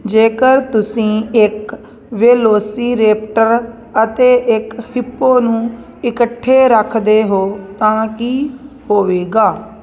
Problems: constant background noise